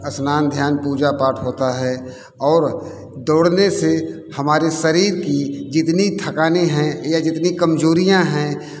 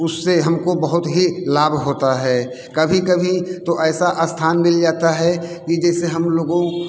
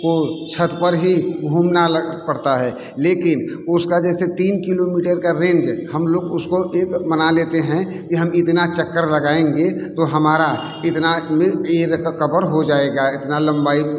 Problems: constant background noise, background conversations at intervals